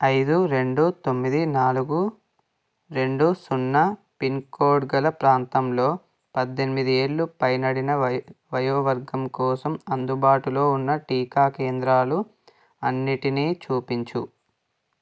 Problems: none marked